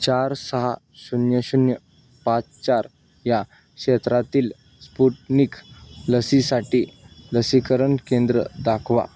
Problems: constant background noise